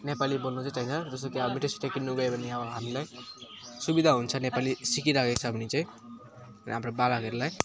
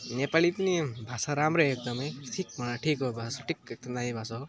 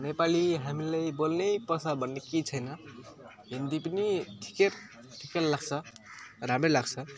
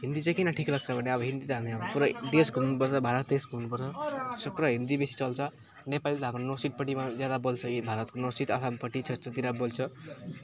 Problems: none marked